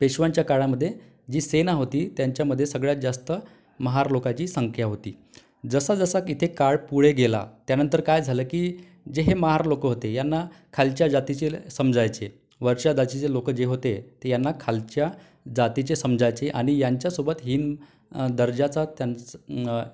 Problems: none marked